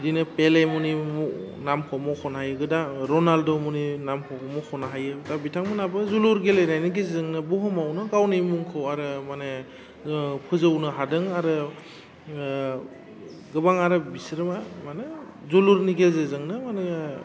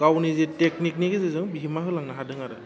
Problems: constant background noise